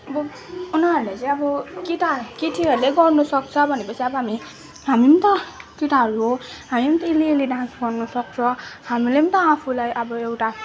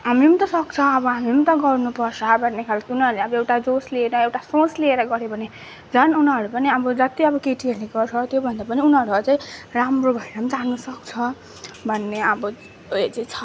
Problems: background sounds at intervals, continuous background conversations